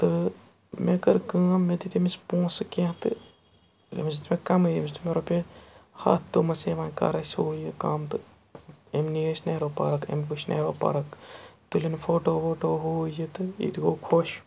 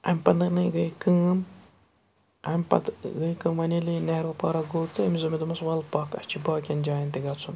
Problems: background sounds at intervals